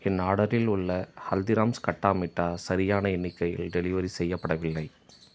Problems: background sounds at intervals